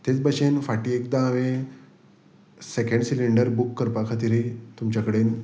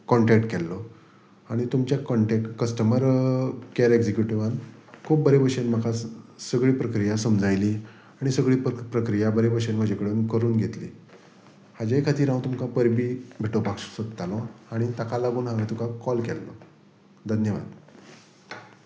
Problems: background sounds at intervals